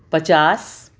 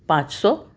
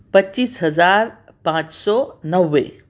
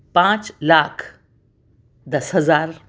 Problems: none marked